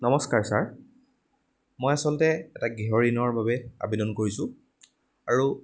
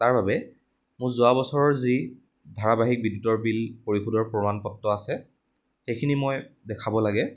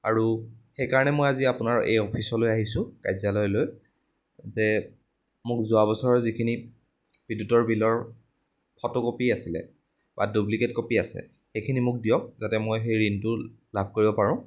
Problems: background sounds at intervals